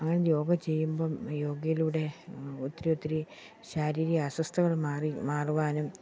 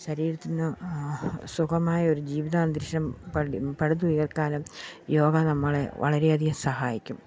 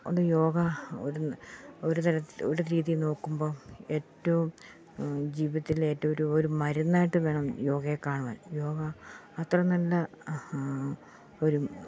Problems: none marked